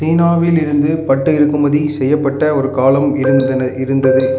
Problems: background sounds at intervals